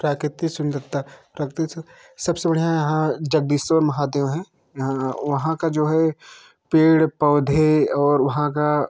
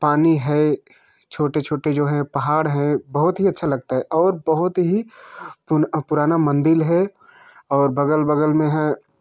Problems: constant background noise